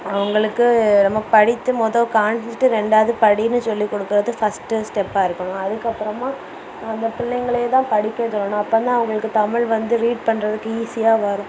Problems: constant background noise